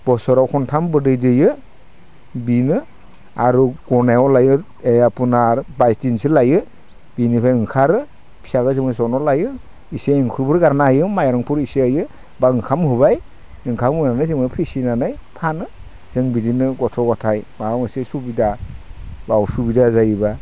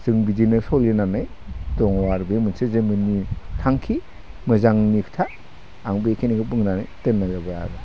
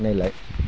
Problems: constant background noise